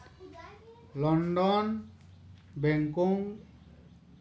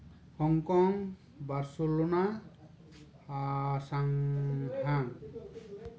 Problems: background conversations at intervals